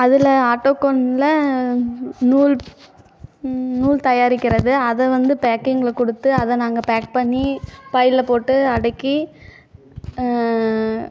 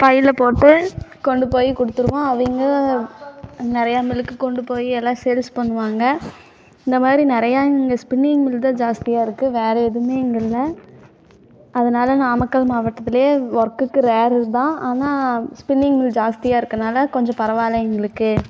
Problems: background conversations at intervals